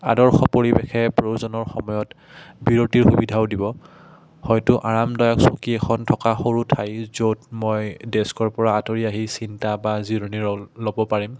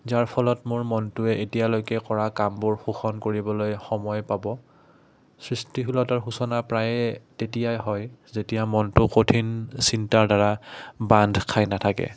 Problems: background sounds at intervals